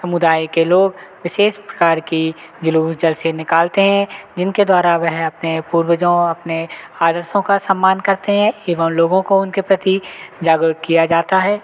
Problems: constant background noise